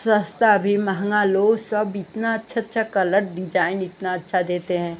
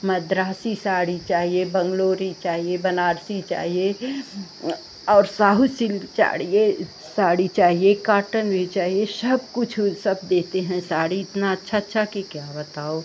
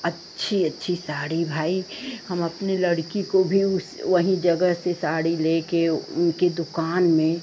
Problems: none marked